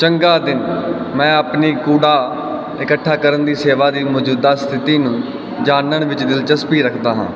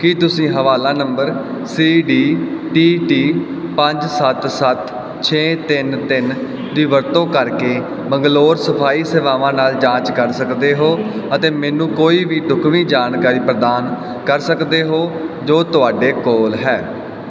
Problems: none marked